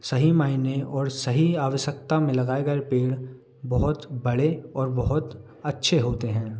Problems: none marked